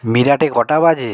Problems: none marked